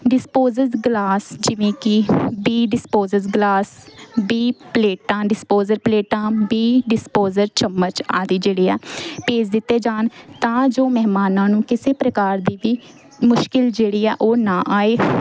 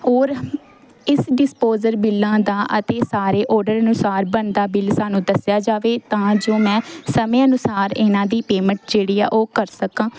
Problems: none marked